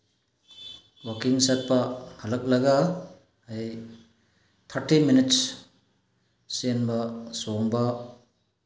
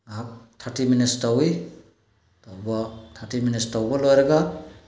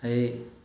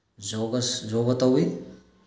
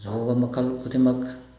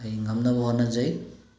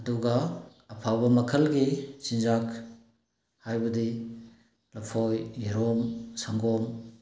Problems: none marked